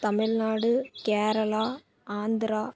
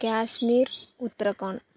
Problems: background sounds at intervals